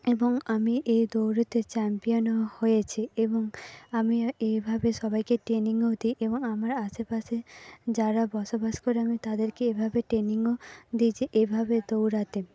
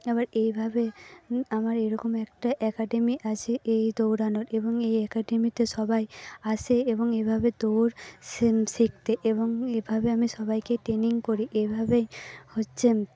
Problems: background conversations at intervals